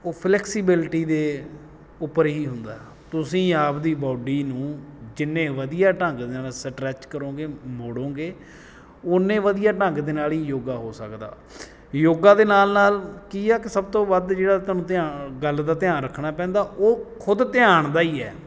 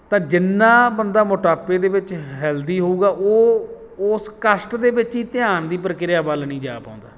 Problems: background sounds at intervals